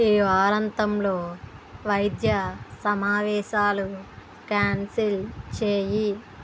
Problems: background sounds at intervals